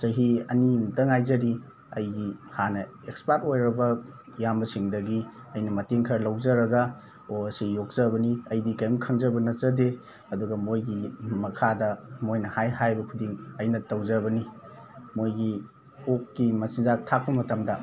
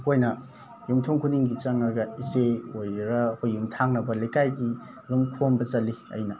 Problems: background sounds at intervals